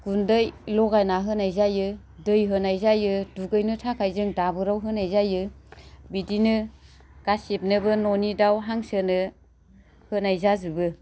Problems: none marked